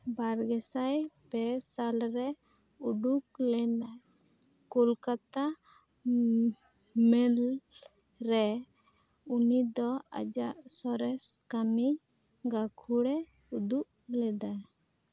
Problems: none marked